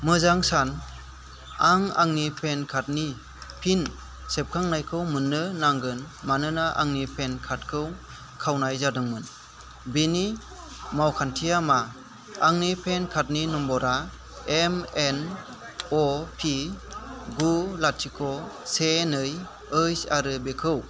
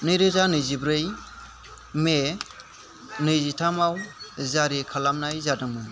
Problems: constant background noise